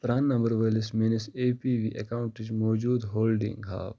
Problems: none marked